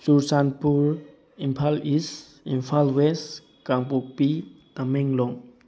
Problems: background sounds at intervals